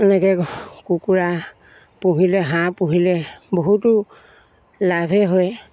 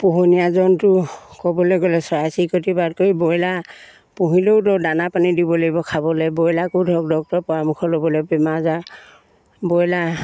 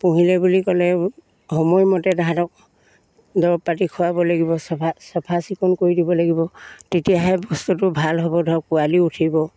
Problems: none marked